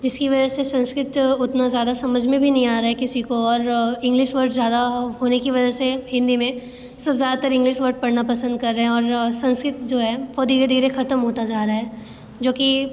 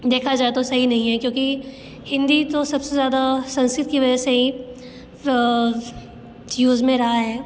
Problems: constant background noise